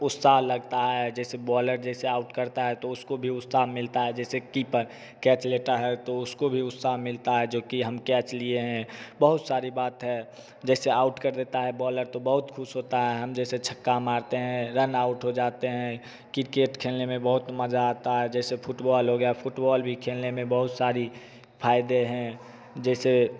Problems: none marked